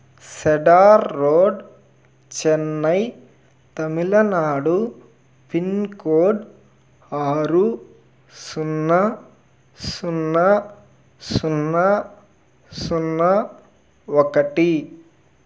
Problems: none marked